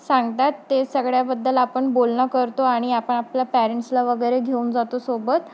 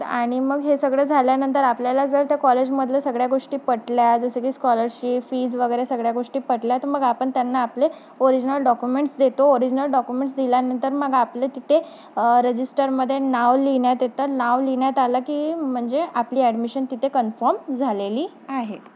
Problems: background sounds at intervals